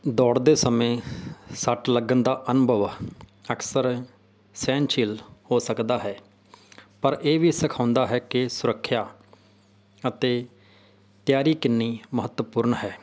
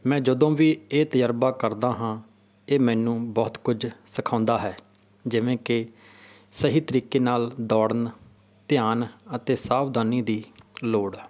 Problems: none marked